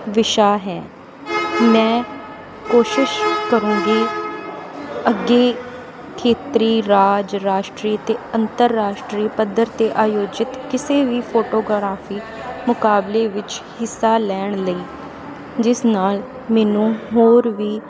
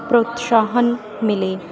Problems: constant background noise